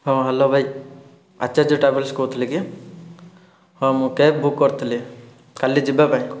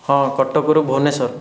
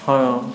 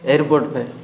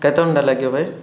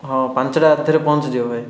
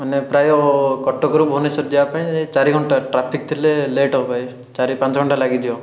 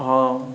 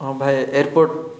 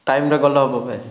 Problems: background sounds at intervals